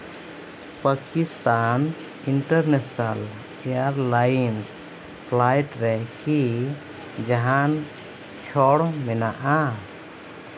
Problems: constant background noise